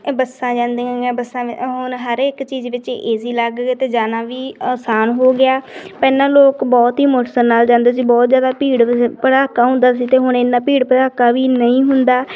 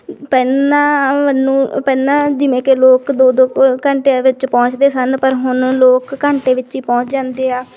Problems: background sounds at intervals